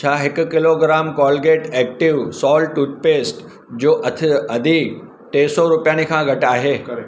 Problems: constant background noise, background conversations at intervals